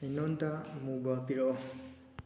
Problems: background sounds at intervals